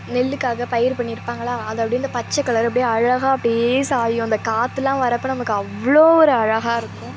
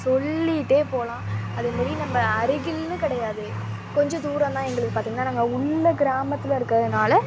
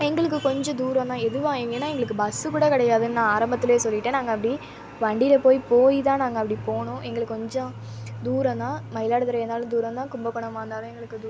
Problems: constant background noise